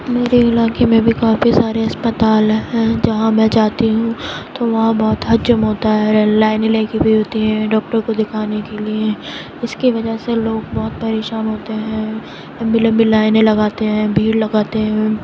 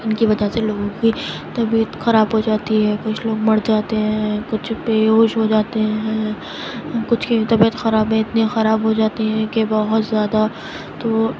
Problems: constant background noise